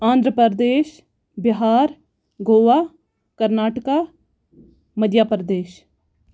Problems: none marked